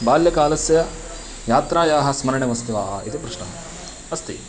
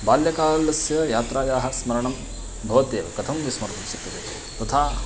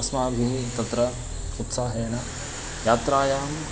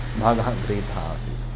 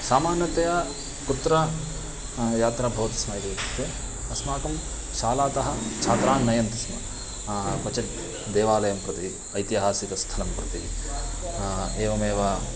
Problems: constant background noise, continuous background conversations